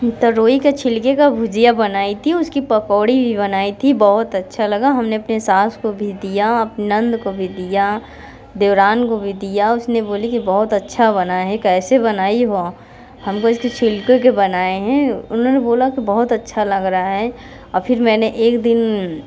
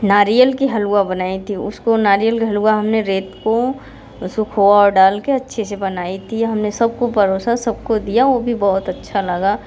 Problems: background sounds at intervals, background conversations at intervals